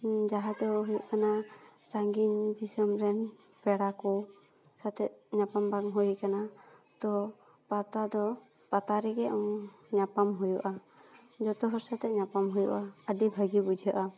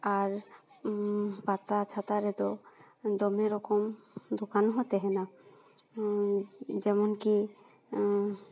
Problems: none marked